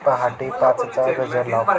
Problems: continuous background conversations